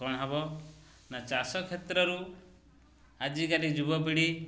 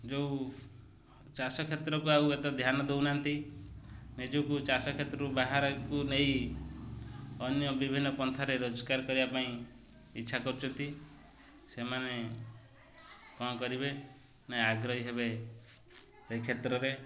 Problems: none marked